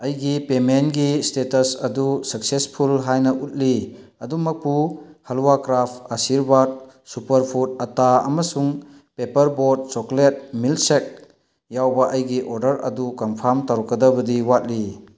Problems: none marked